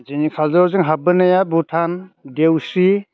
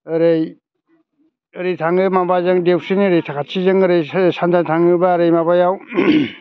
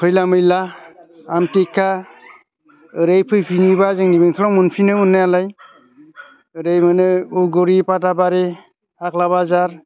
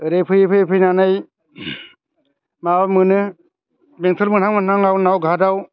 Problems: constant background noise